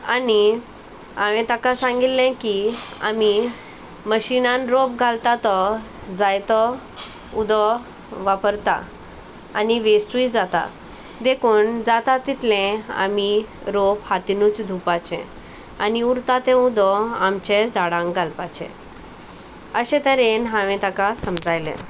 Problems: none marked